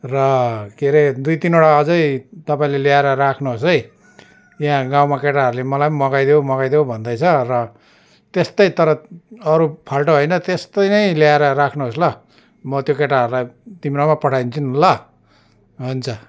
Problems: constant background noise